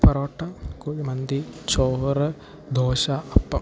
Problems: background sounds at intervals, low volume